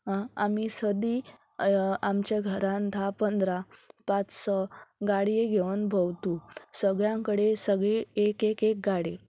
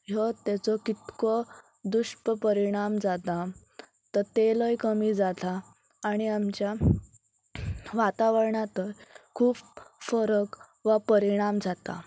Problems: none marked